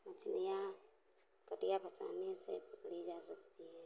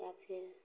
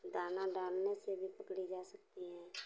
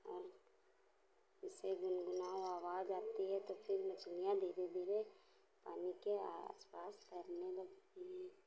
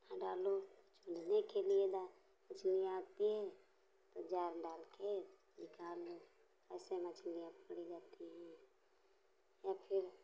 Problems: constant background noise